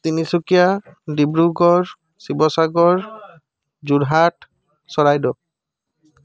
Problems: background conversations at intervals